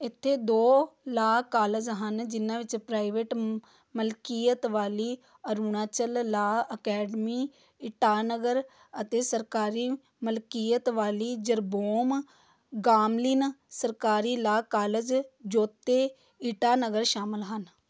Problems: background sounds at intervals